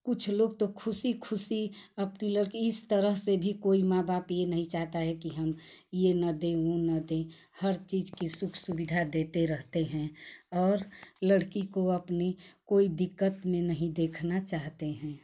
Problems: none marked